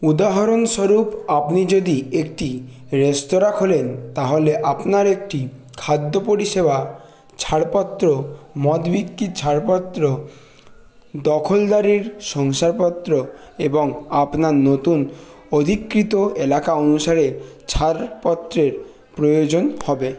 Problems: constant background noise, background conversations at intervals